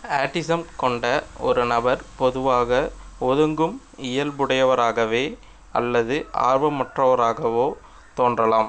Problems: none marked